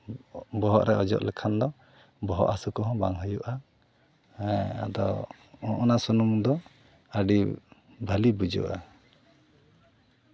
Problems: background sounds at intervals